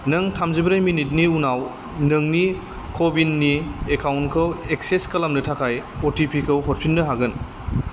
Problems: constant background noise